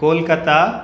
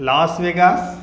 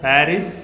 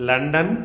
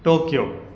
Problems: background conversations at intervals